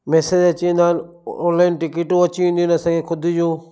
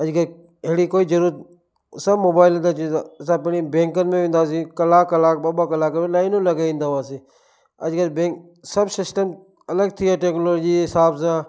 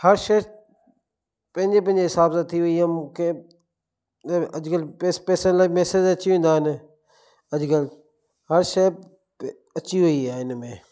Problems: echo